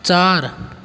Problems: constant background noise